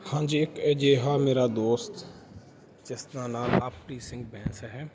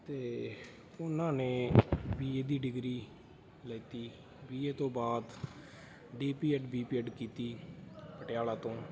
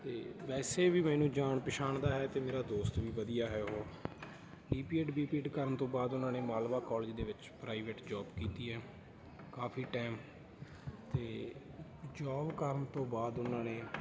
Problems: continuous background conversations